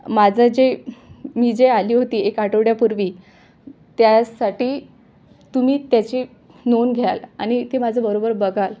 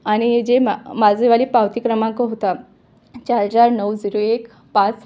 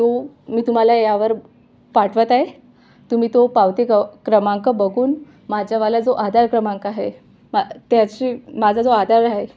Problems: background sounds at intervals, background conversations at intervals